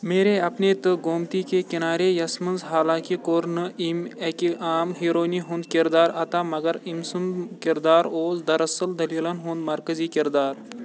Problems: constant background noise